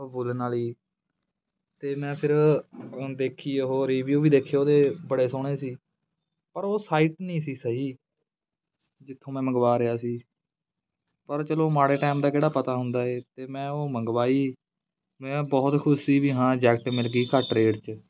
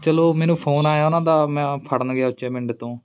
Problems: background conversations at intervals